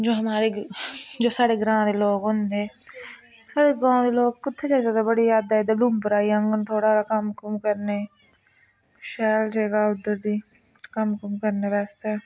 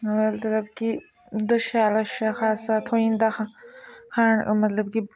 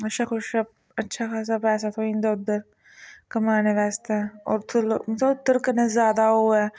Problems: constant background noise